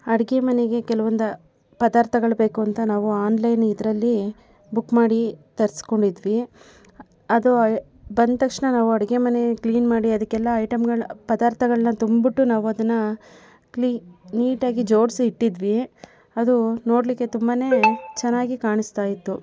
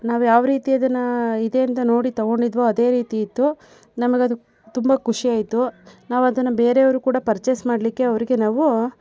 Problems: background sounds at intervals